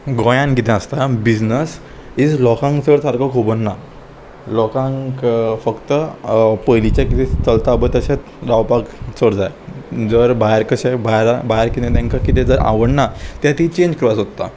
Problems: none marked